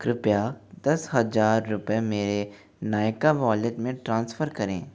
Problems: none marked